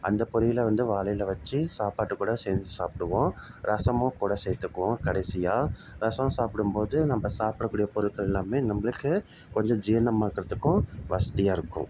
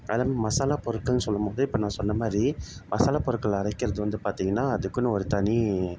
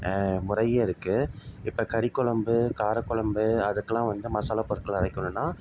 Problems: constant background noise